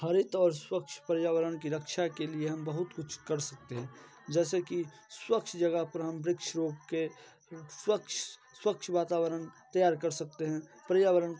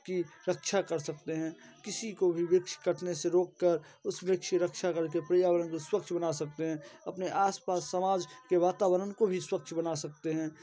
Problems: constant background noise, continuous background conversations